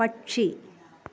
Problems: none marked